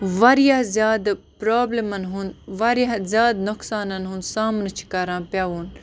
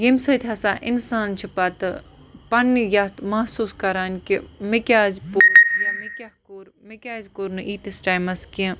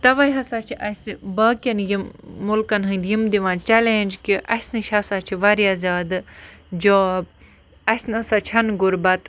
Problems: constant background noise